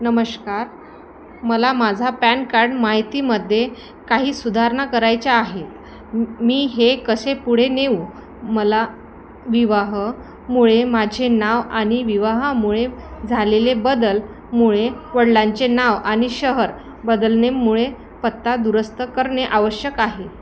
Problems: constant background noise